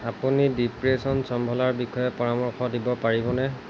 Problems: constant background noise